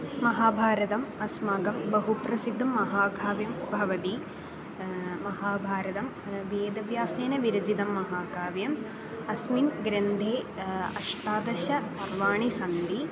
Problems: constant background noise, continuous background conversations